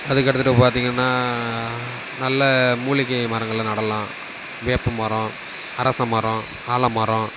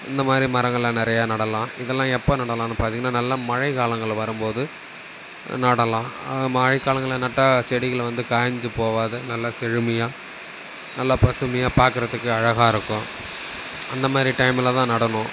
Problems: constant background noise